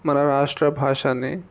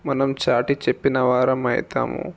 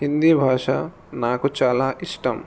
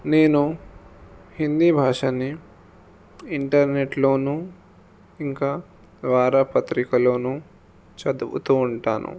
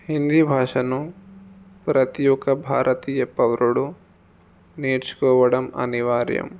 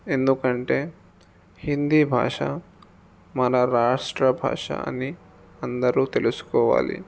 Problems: none marked